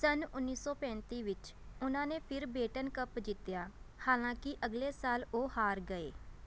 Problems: none marked